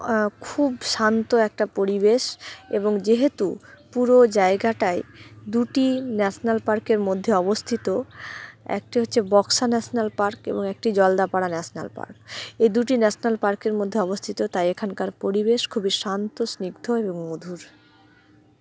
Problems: background sounds at intervals